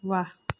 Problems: none marked